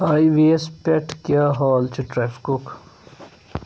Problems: constant background noise